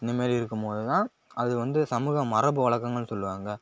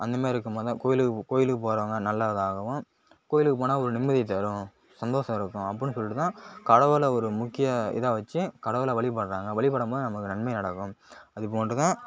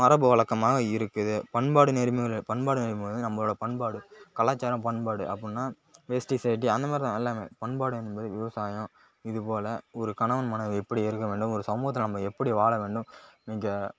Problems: none marked